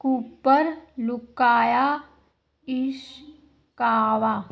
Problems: continuous background conversations